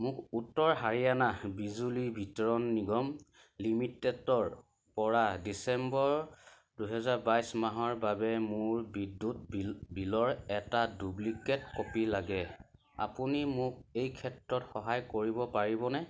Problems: none marked